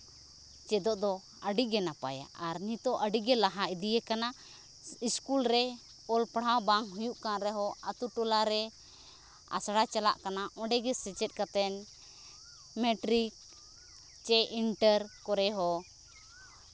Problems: none marked